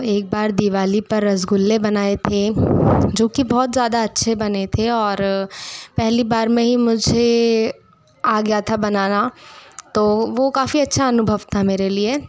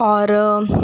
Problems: none marked